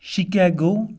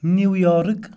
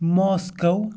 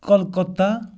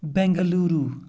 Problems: background sounds at intervals